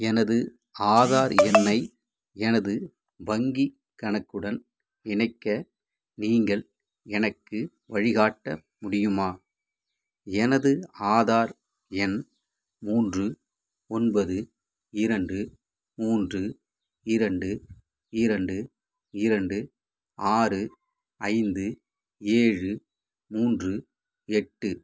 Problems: none marked